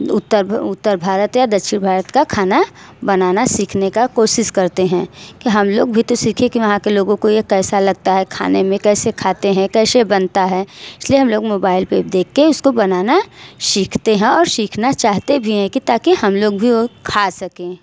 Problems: constant background noise, echo